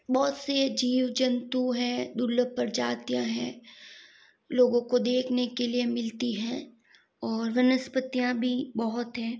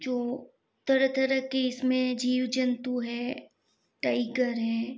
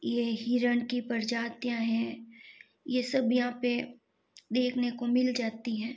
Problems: background sounds at intervals